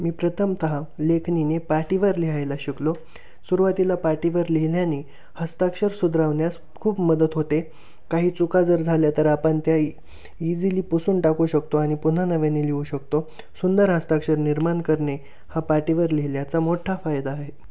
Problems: none marked